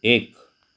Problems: background sounds at intervals